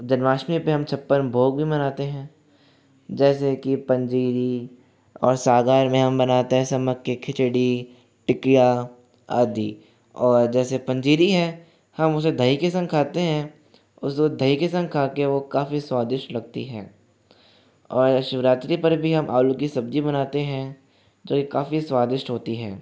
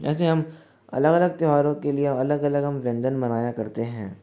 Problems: background sounds at intervals, echo